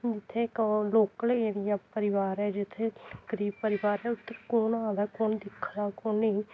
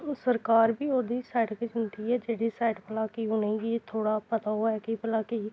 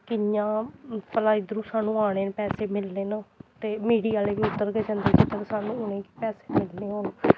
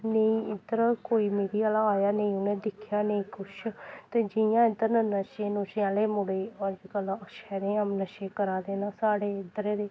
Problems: none marked